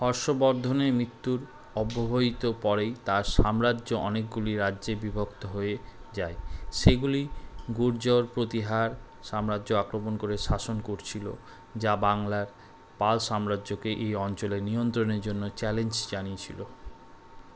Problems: background sounds at intervals